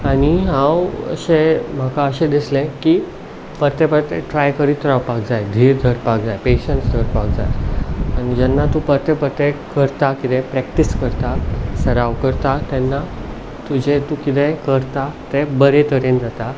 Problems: background sounds at intervals